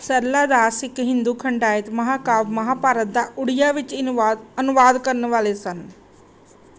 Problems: none marked